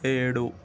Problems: constant background noise